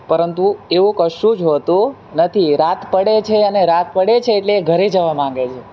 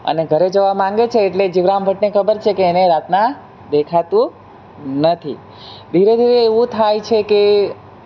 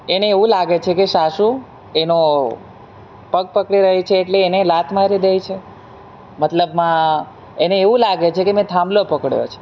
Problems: none marked